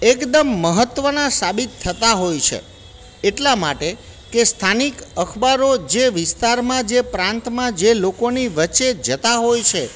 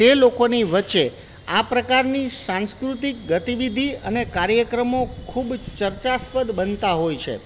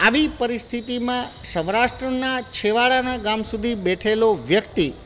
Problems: none marked